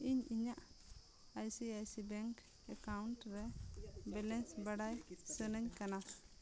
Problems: constant background noise, background conversations at intervals